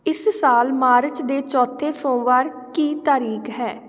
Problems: none marked